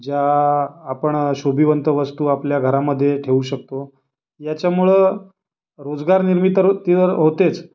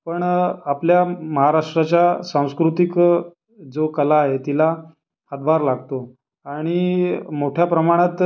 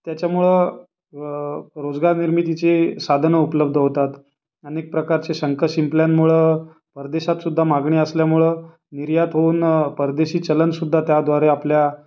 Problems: background sounds at intervals